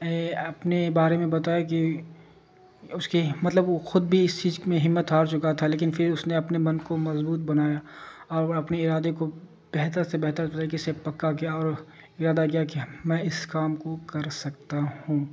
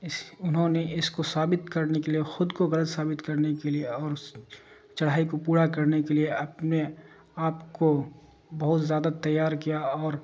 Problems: constant background noise